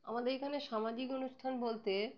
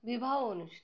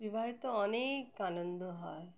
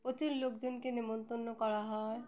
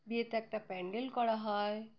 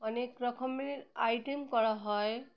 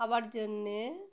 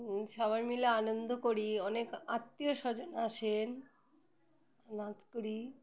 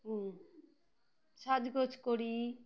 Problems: background sounds at intervals